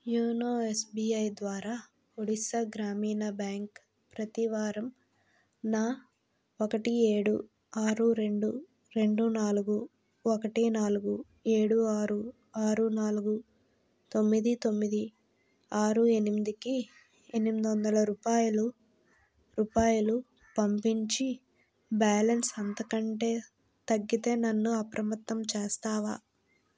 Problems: low volume